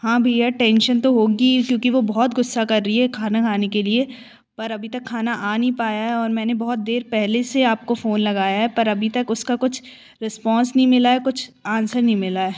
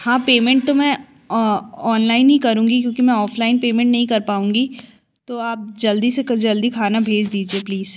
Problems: constant background noise